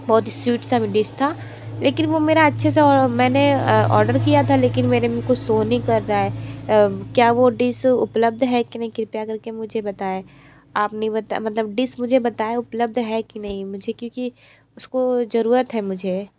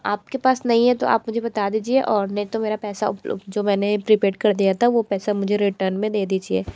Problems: constant background noise